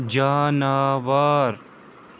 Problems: none marked